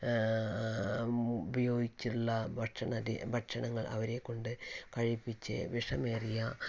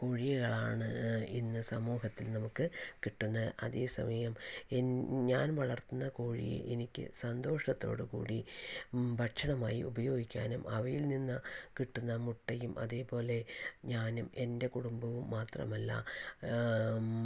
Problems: none marked